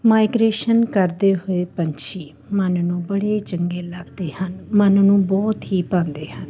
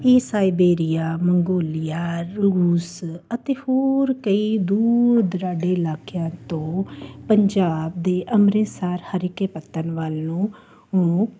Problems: constant background noise